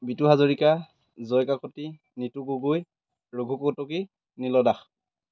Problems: none marked